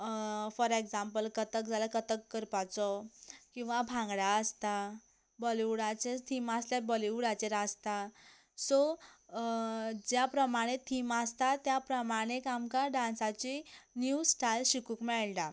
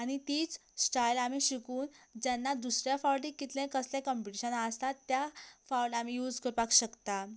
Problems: none marked